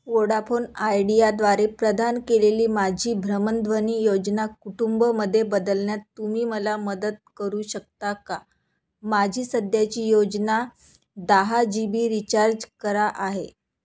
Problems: constant background noise